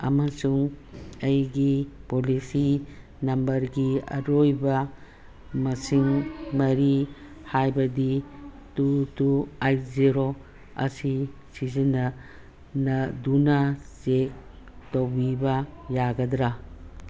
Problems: constant background noise